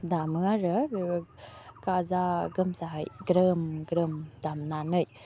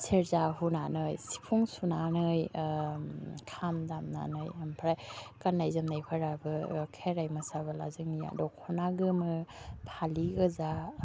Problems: constant background noise